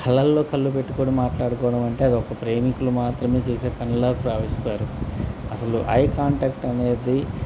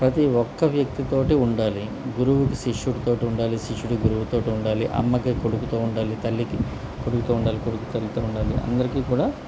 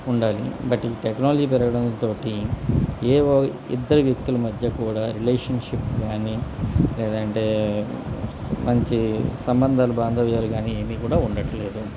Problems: constant background noise